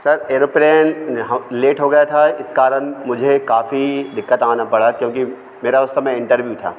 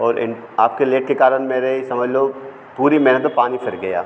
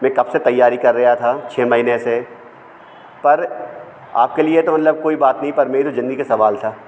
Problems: constant background noise